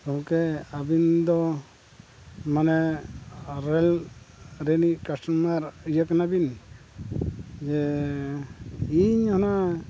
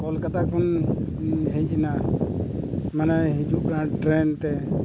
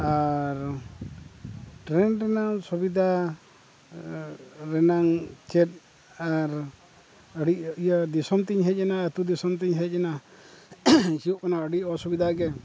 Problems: background sounds at intervals